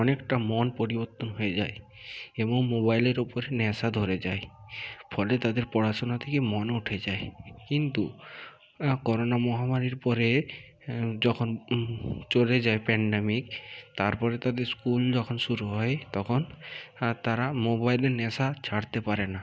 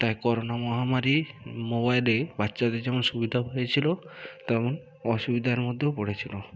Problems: none marked